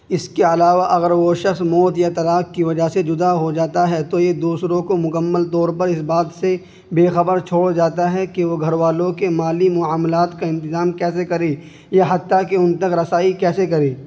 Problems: constant background noise